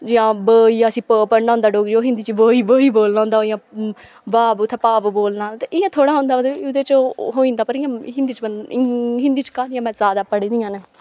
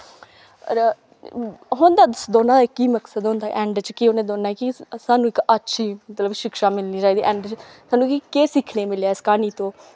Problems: background sounds at intervals